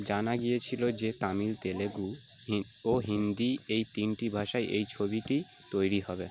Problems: none marked